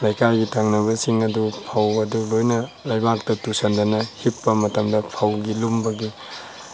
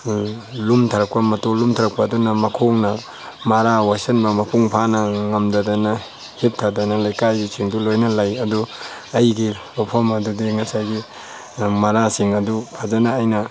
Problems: constant background noise